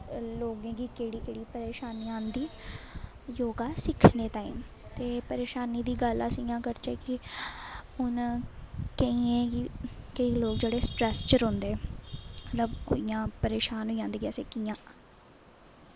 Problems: constant background noise